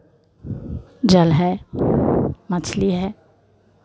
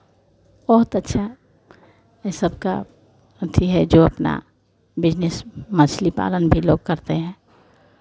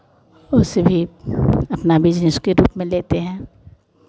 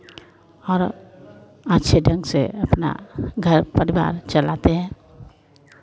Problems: none marked